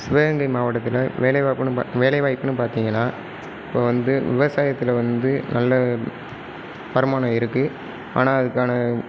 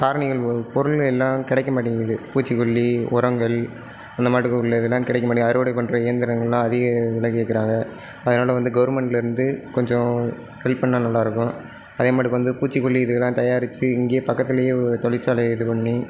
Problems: low volume